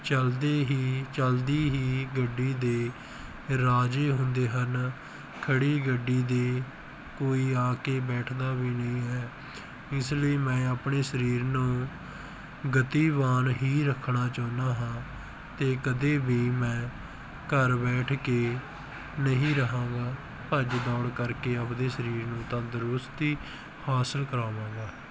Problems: background sounds at intervals